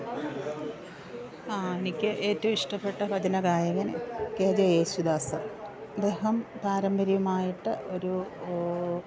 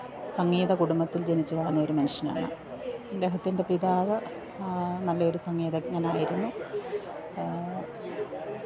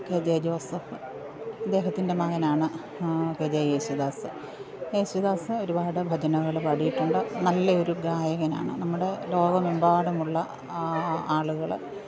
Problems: low volume